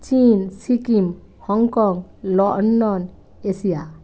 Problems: constant background noise